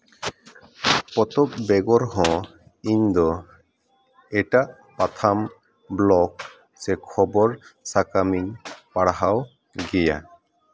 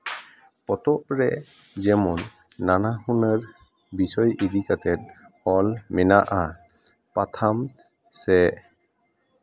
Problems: background conversations at intervals